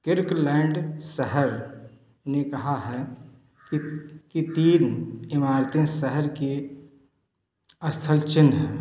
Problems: background sounds at intervals, echo